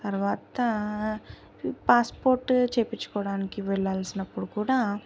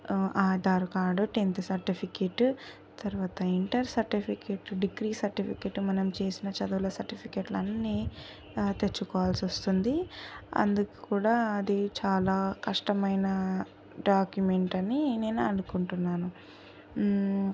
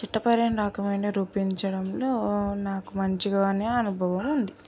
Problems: none marked